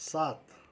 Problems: none marked